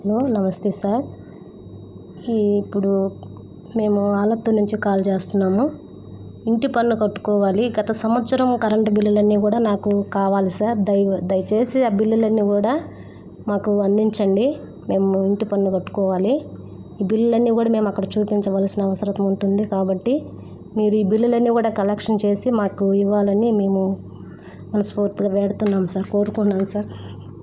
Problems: constant background noise